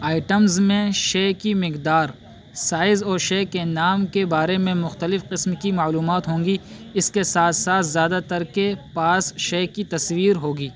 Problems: constant background noise